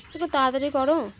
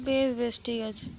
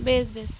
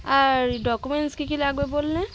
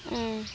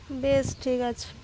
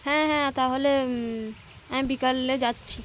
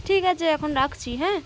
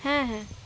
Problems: constant background noise, background conversations at intervals